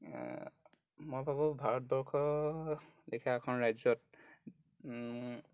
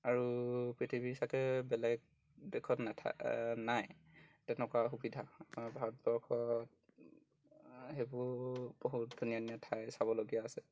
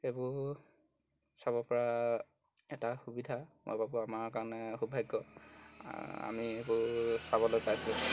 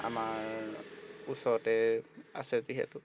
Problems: background sounds at intervals